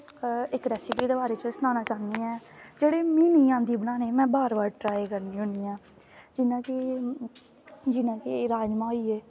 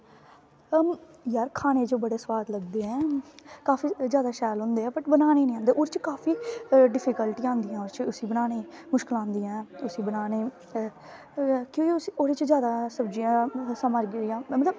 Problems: constant background noise